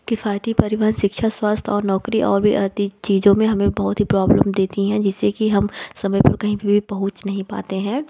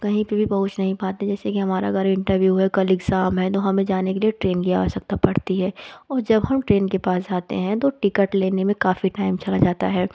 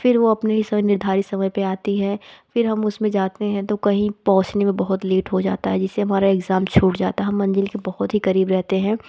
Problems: none marked